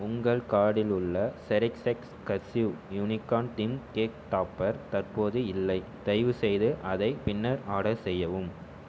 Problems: none marked